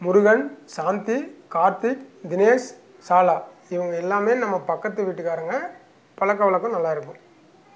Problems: none marked